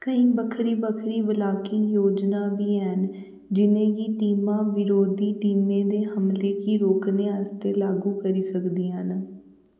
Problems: background sounds at intervals, echo